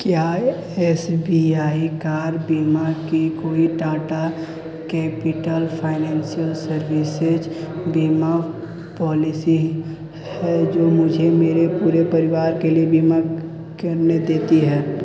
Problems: none marked